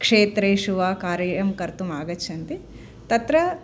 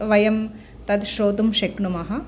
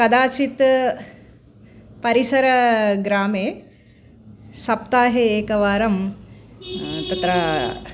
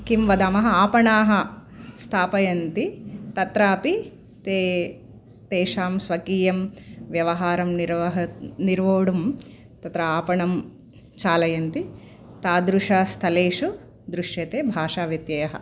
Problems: none marked